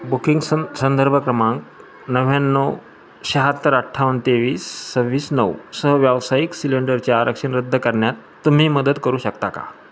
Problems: none marked